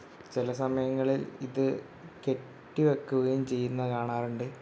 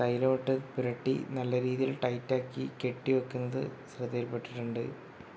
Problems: background sounds at intervals